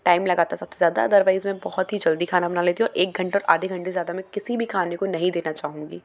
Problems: none marked